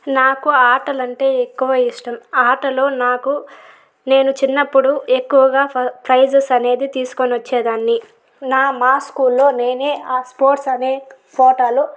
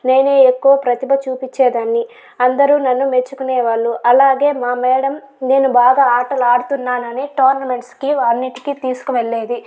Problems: background sounds at intervals